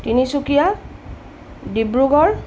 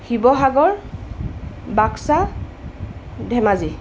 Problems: constant background noise